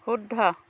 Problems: none marked